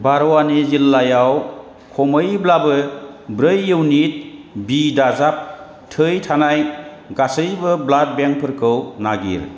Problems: constant background noise